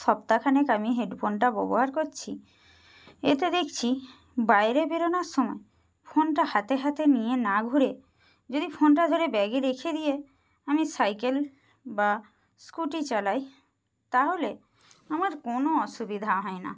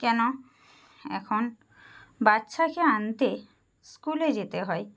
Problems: none marked